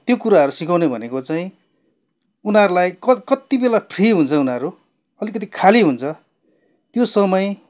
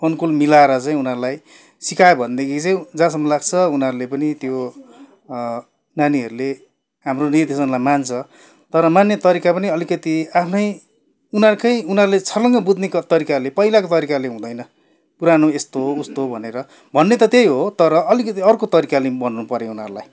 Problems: none marked